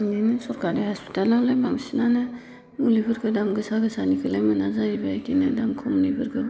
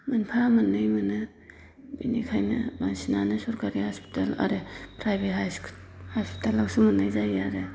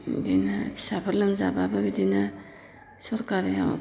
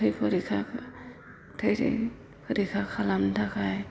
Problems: low volume